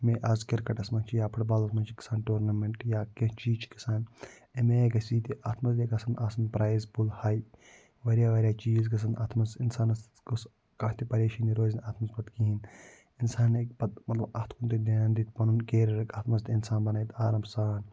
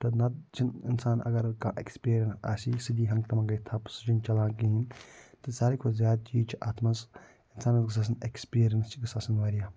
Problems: low volume